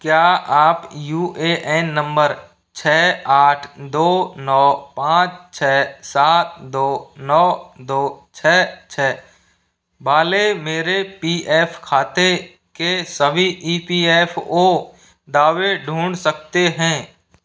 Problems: background sounds at intervals